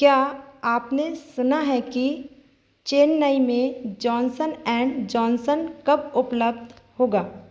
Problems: background sounds at intervals